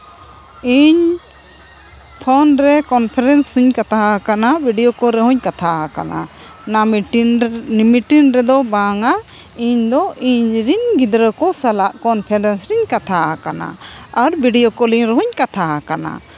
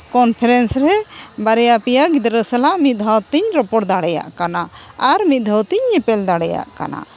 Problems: constant background noise